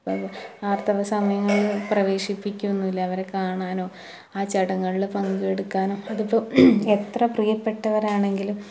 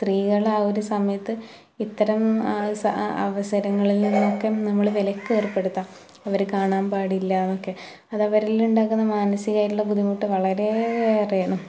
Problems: background sounds at intervals